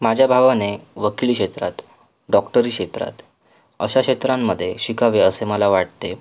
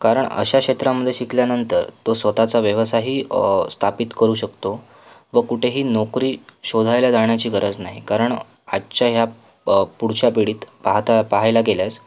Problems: constant background noise, background conversations at intervals